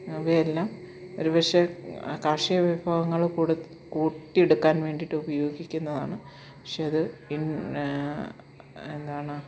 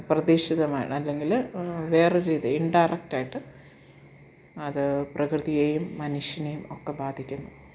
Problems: background sounds at intervals